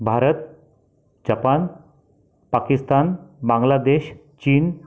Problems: background sounds at intervals, background conversations at intervals